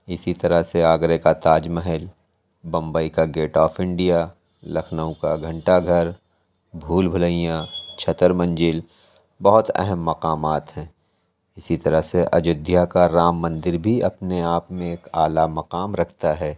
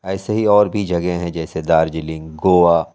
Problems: none marked